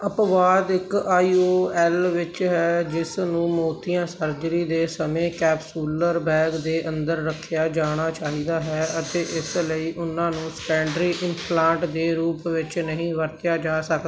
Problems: background sounds at intervals